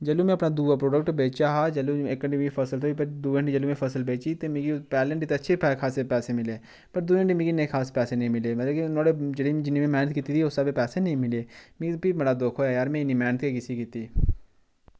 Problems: background sounds at intervals